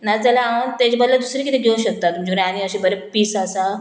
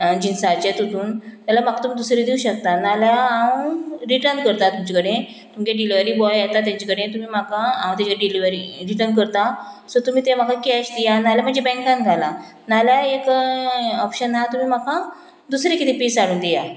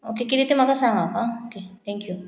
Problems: none marked